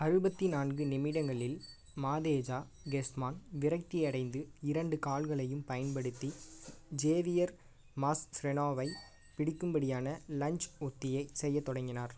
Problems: none marked